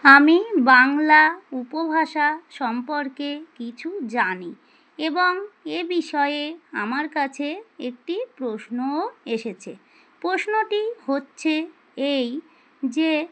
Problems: none marked